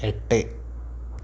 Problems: constant background noise